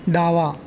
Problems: none marked